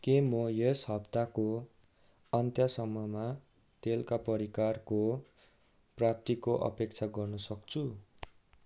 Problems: background sounds at intervals